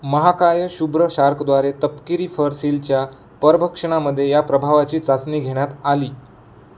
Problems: constant background noise